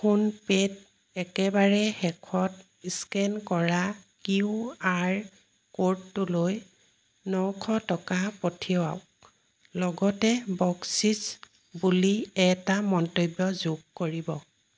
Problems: none marked